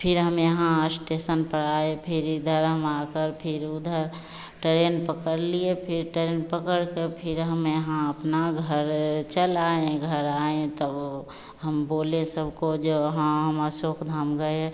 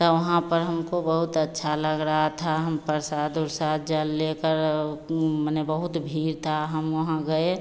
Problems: constant background noise, echo